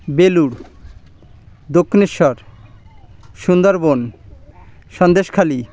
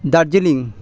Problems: constant background noise